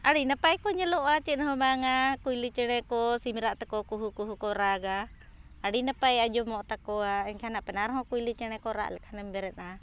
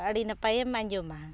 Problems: background sounds at intervals